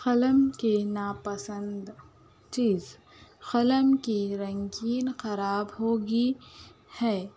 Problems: constant background noise